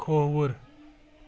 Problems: none marked